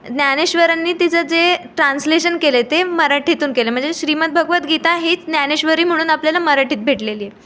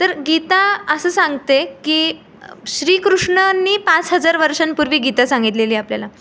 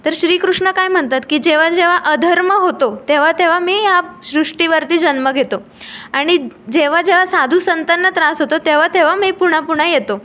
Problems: background sounds at intervals, background conversations at intervals